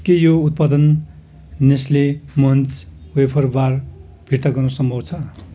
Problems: none marked